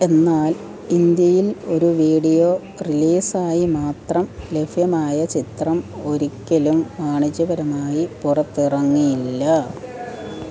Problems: continuous background conversations